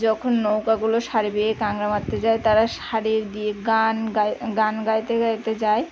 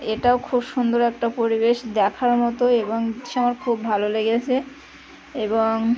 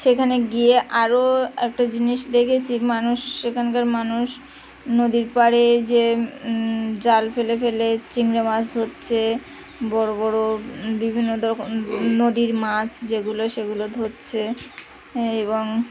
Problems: constant background noise, continuous background conversations